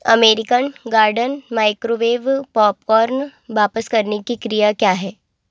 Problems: none marked